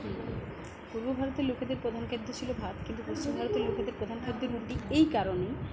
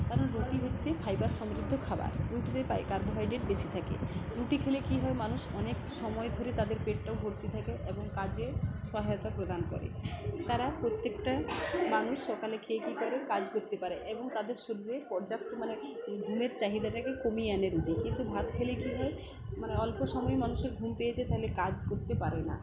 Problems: continuous background conversations